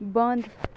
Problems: none marked